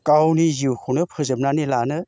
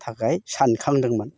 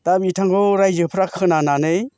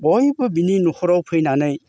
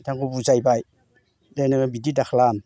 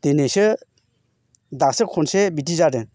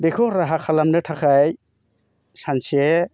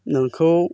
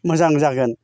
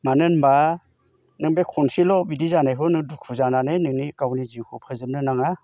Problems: constant background noise